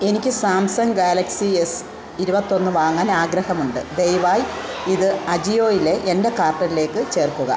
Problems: constant background noise